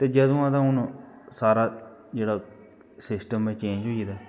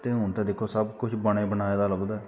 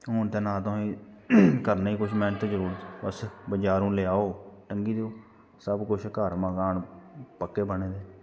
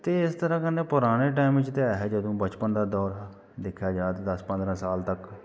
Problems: constant background noise